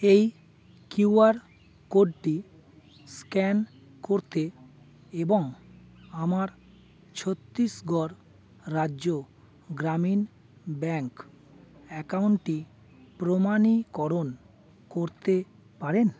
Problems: none marked